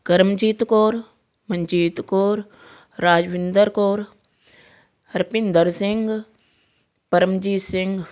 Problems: background sounds at intervals